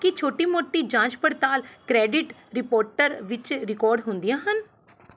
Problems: none marked